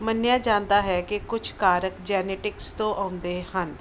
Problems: background sounds at intervals